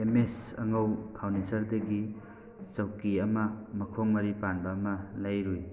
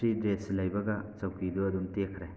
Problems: background sounds at intervals, background conversations at intervals